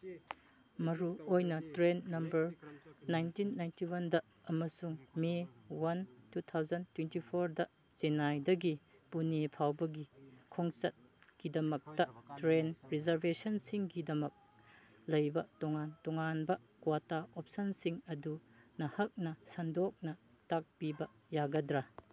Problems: background conversations at intervals, low volume